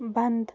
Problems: none marked